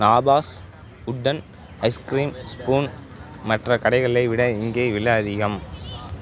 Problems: constant background noise, background conversations at intervals